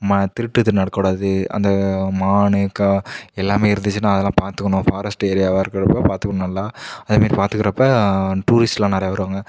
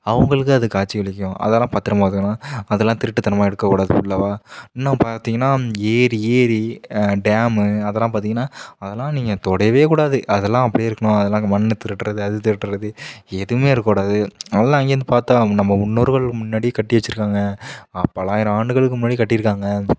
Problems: none marked